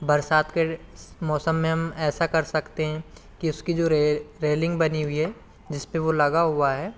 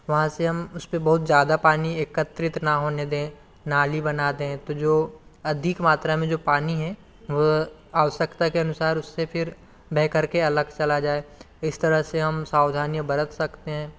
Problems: none marked